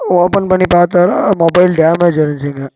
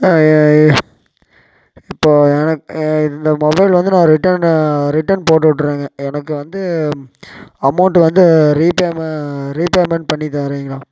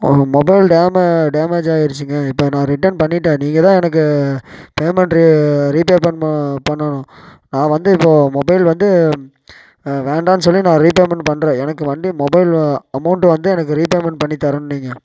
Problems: none marked